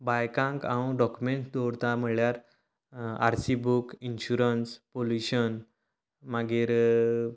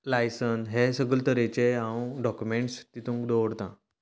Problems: none marked